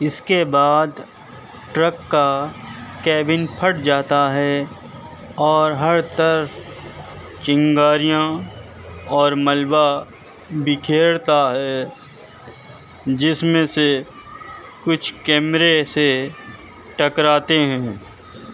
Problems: constant background noise, background conversations at intervals